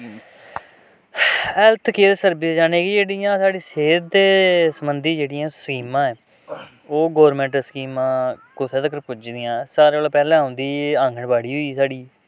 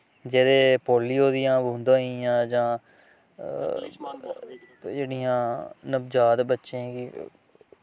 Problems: constant background noise